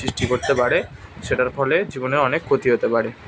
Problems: constant background noise, background conversations at intervals